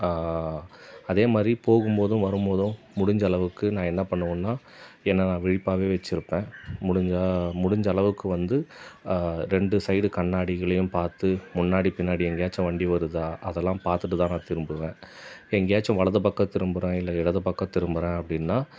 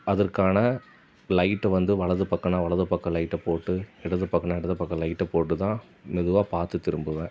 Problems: constant background noise